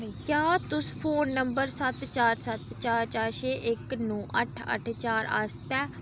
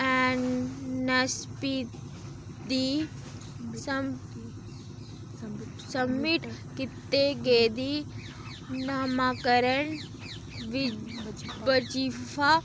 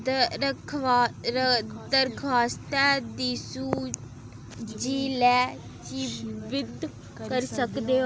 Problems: constant background noise, background conversations at intervals